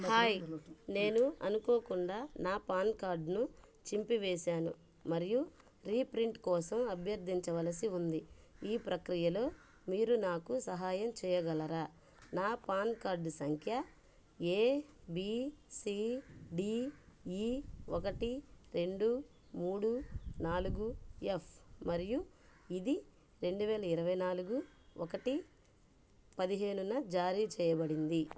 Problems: background conversations at intervals